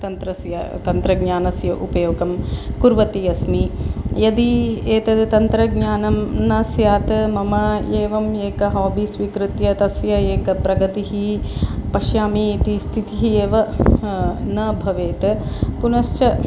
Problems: constant background noise